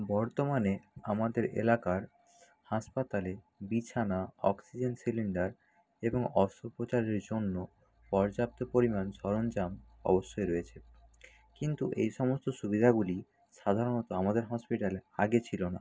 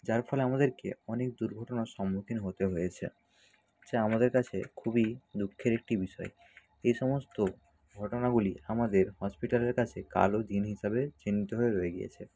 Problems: none marked